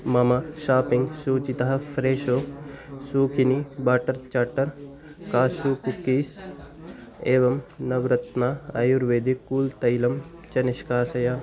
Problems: none marked